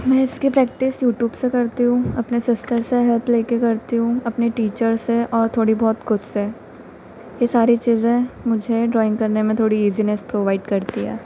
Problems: constant background noise